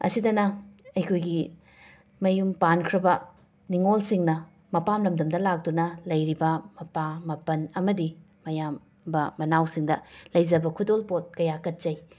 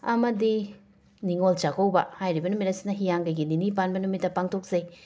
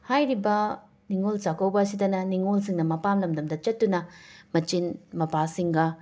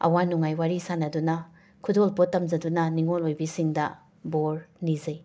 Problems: background sounds at intervals